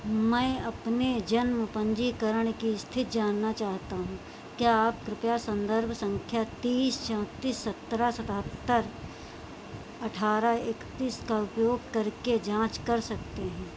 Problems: constant background noise